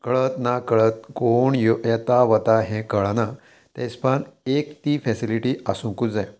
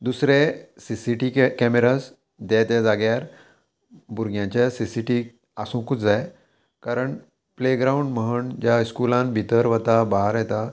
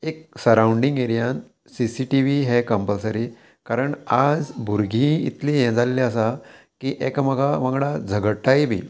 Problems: constant background noise